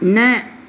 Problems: constant background noise